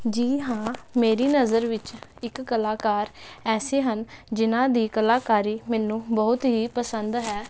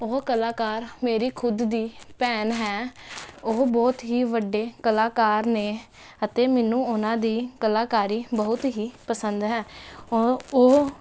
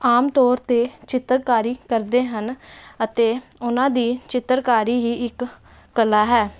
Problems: constant background noise